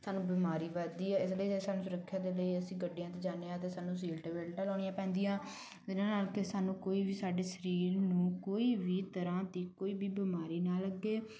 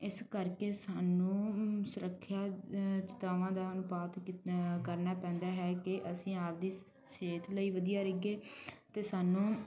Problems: none marked